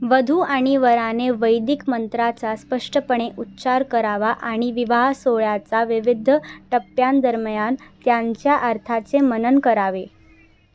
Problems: none marked